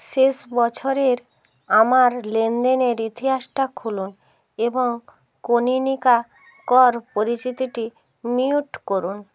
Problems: background sounds at intervals